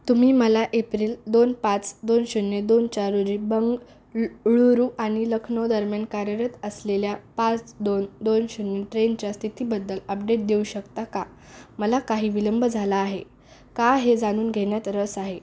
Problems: none marked